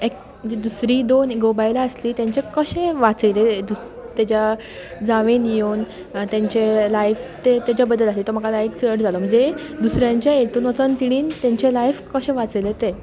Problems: none marked